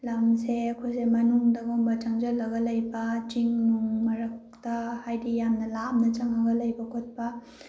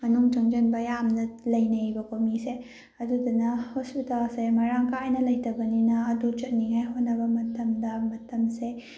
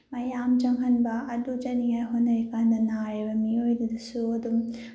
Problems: background conversations at intervals